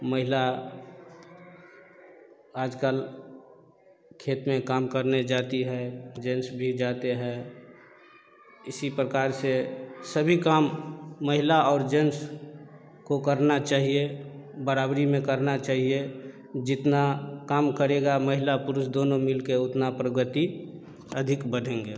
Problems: none marked